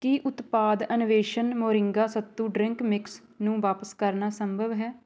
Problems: none marked